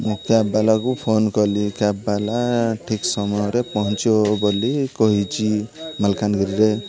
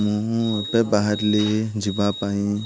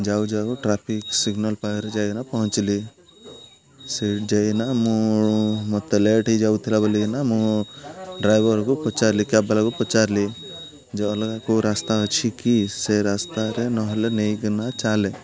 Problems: constant background noise, continuous background conversations